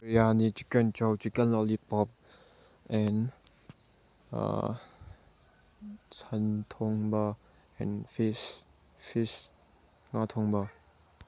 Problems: none marked